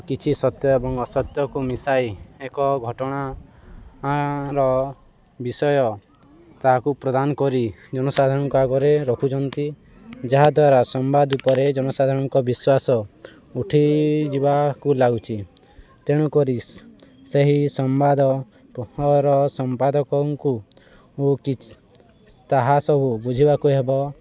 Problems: constant background noise